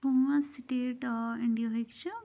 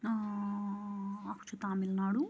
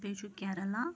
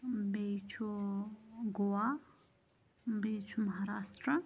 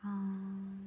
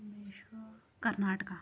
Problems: none marked